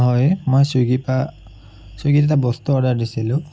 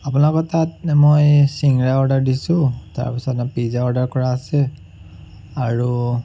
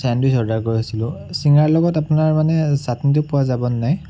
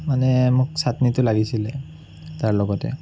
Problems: background sounds at intervals